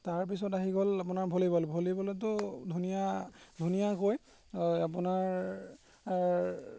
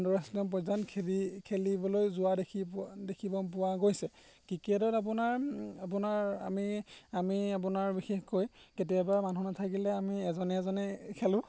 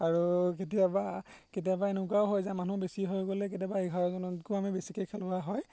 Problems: none marked